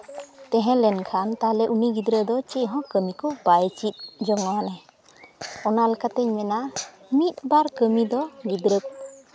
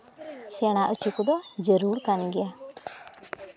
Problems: background sounds at intervals, continuous background conversations